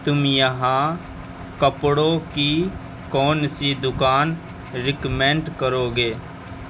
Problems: constant background noise